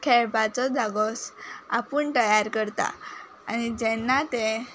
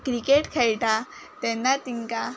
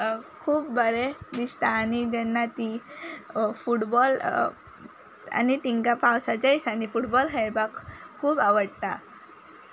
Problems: background sounds at intervals